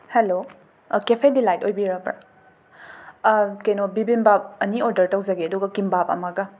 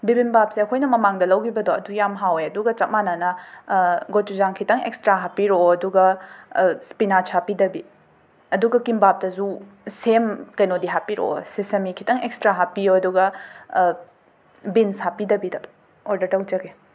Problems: background sounds at intervals